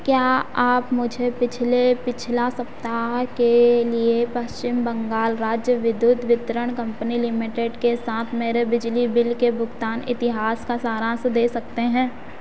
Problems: none marked